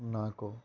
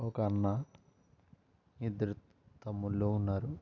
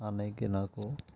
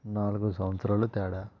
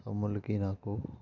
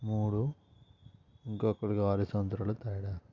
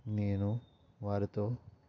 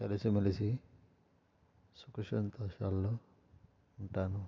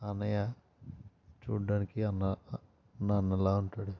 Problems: constant background noise, low volume